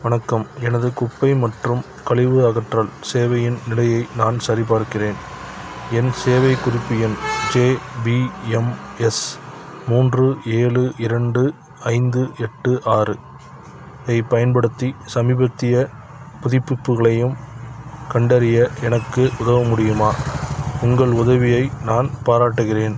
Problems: background sounds at intervals